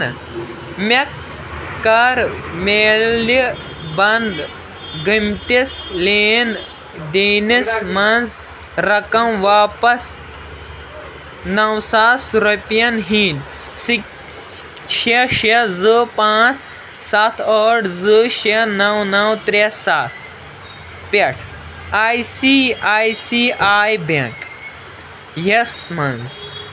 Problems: constant background noise, background conversations at intervals